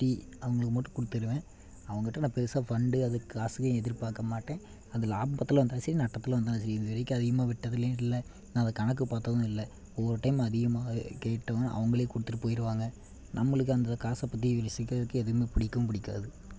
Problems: none marked